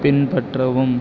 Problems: constant background noise